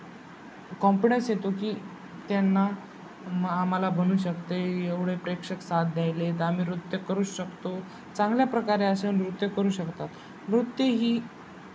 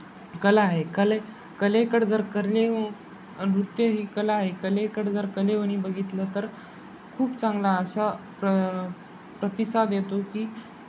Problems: constant background noise, background conversations at intervals